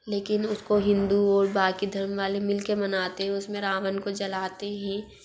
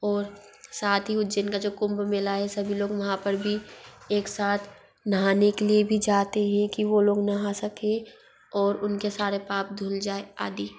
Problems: background sounds at intervals